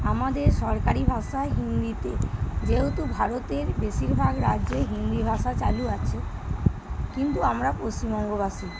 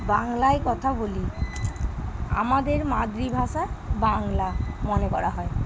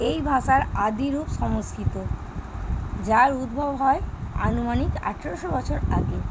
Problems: none marked